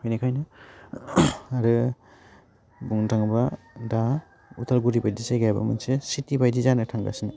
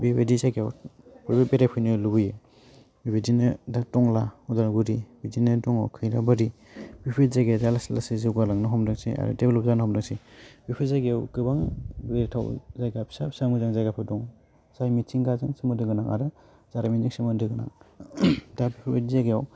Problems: none marked